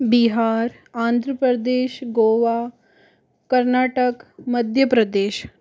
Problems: background sounds at intervals